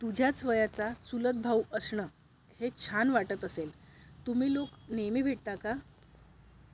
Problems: background sounds at intervals